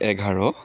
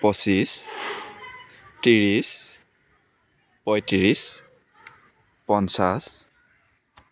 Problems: background sounds at intervals, continuous background conversations